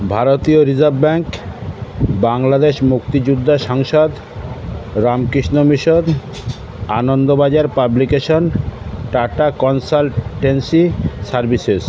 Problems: constant background noise, continuous background conversations